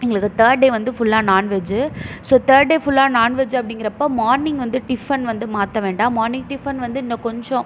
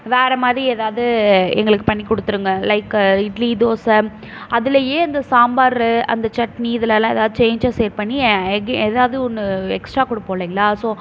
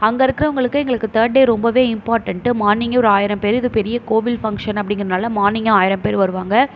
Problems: none marked